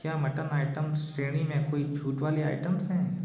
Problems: background sounds at intervals